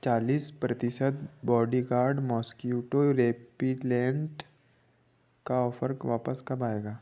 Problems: none marked